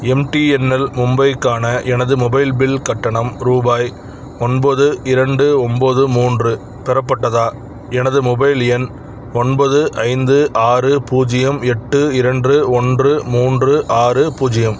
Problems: none marked